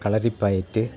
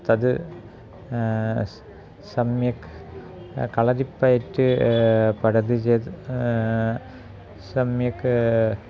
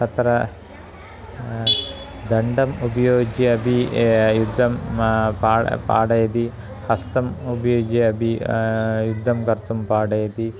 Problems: background conversations at intervals